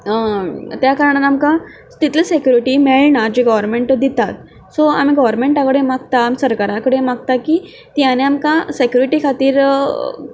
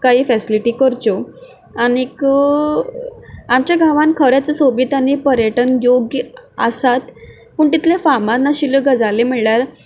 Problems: background sounds at intervals